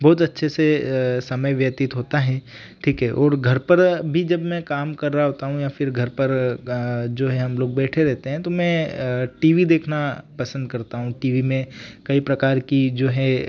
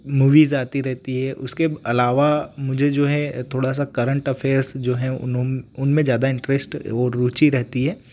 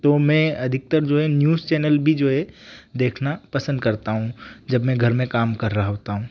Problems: background sounds at intervals